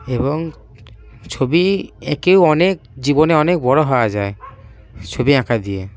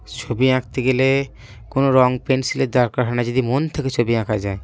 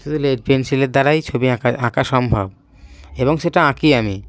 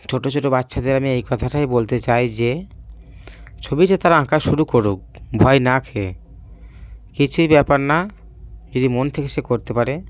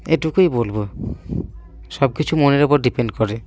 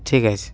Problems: background sounds at intervals, background conversations at intervals